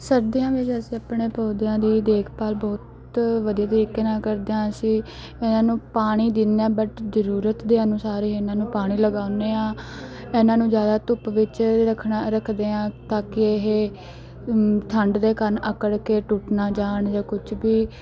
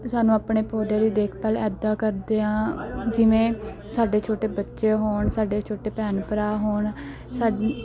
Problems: background sounds at intervals, background conversations at intervals